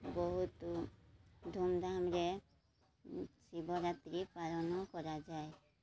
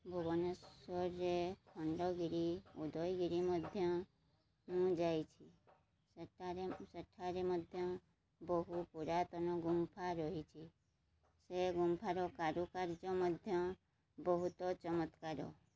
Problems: low volume